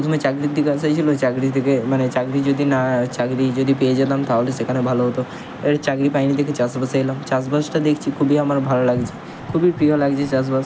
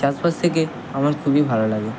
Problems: constant background noise